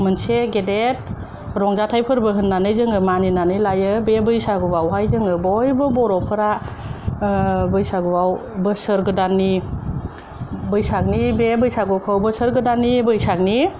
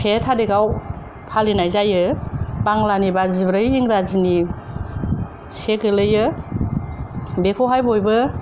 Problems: none marked